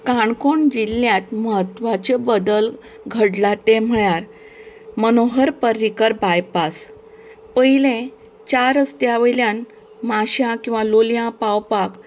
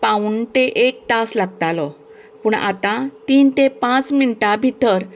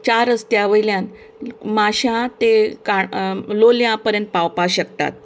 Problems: background conversations at intervals